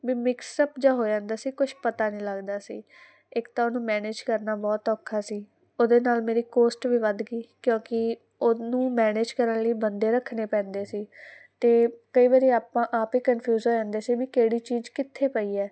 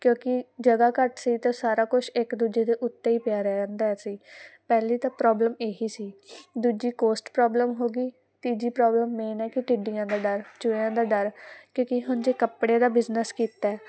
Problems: none marked